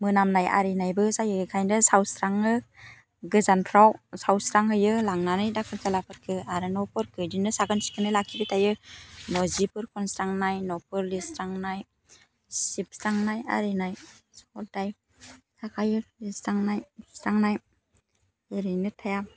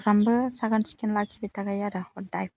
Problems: constant background noise